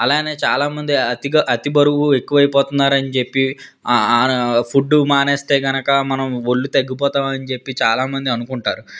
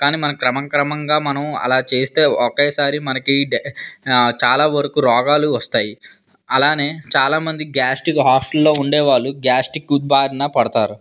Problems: background conversations at intervals